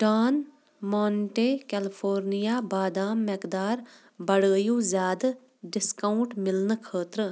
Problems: background sounds at intervals